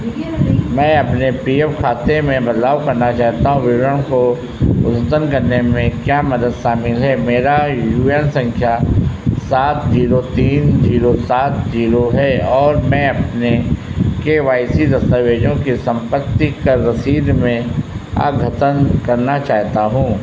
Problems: constant background noise